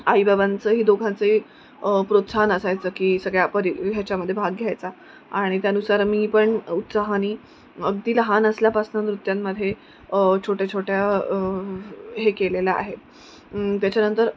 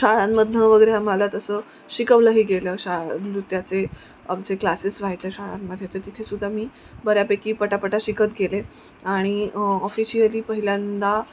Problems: none marked